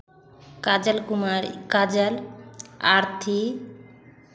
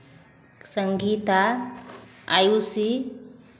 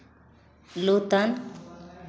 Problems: background sounds at intervals, continuous background conversations